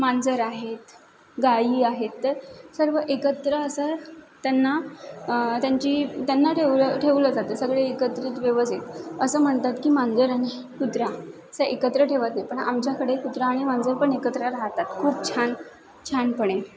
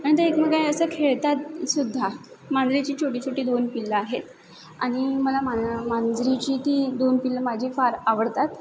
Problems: constant background noise